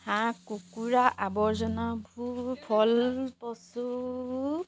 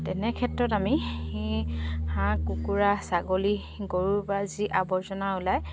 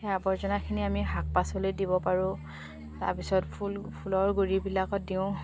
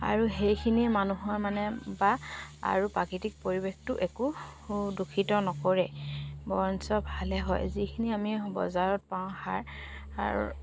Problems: none marked